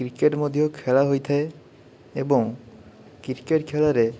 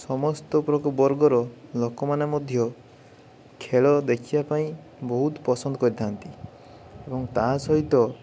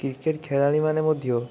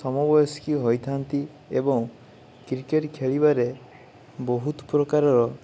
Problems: none marked